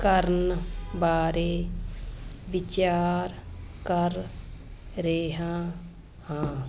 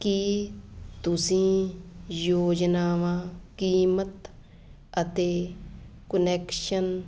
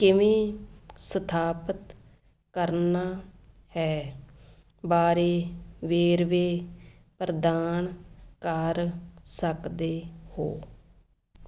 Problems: constant background noise